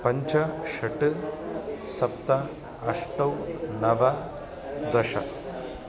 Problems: constant background noise